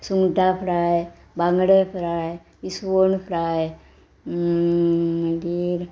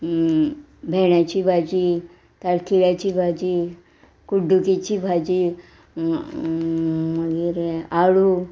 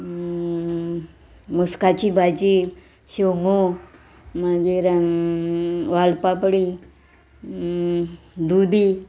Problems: background sounds at intervals